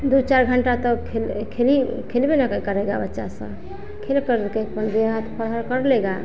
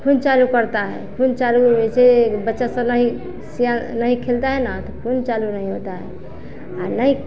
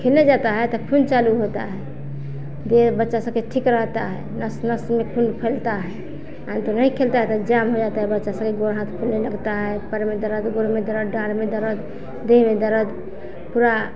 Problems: continuous background conversations